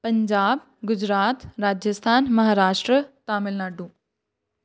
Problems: none marked